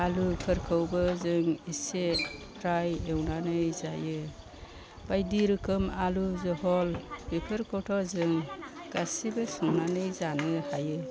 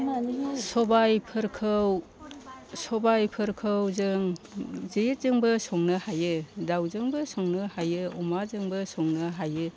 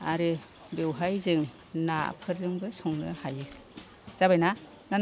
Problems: low volume